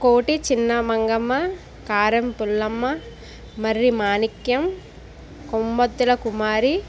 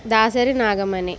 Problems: constant background noise